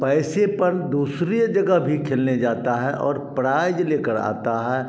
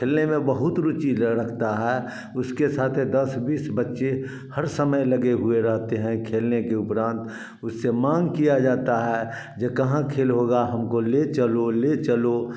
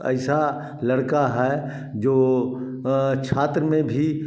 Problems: background sounds at intervals, echo